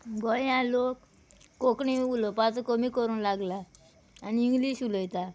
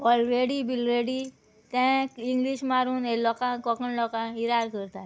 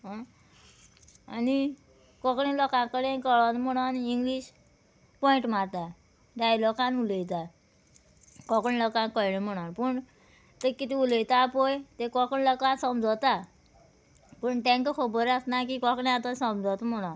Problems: background sounds at intervals